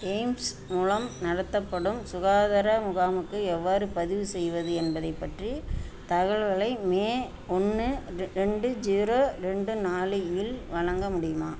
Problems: none marked